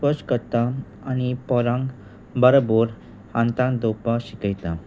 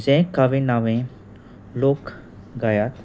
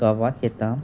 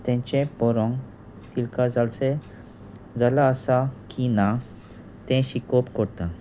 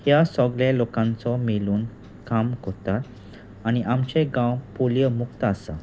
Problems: constant background noise